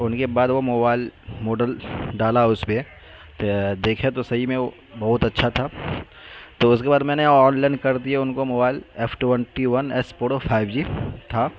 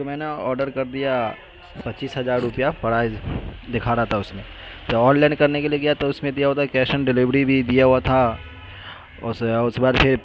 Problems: constant background noise